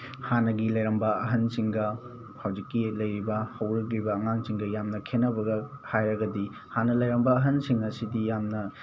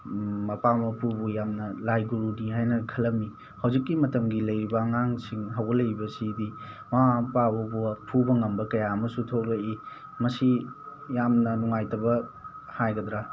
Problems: none marked